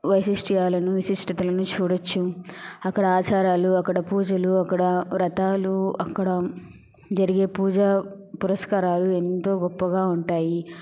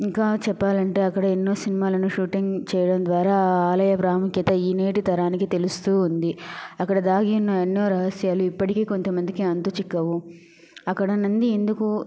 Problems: none marked